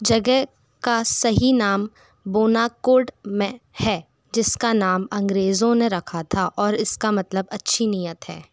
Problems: none marked